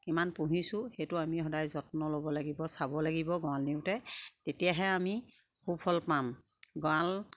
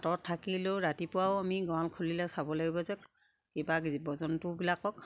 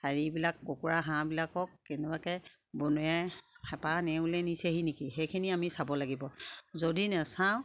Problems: constant background noise, background conversations at intervals